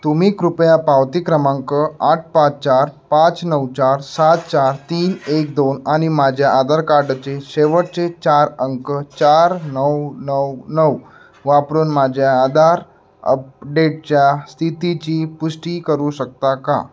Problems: none marked